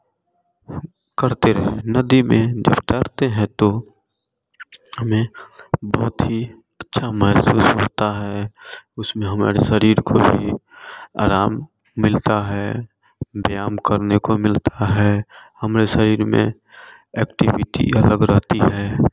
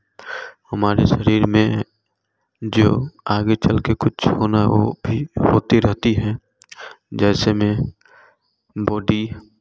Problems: none marked